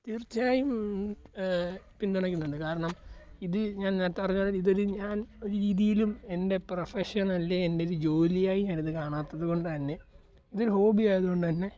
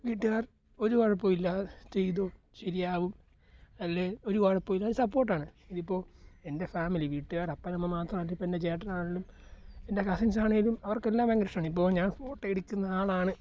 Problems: low volume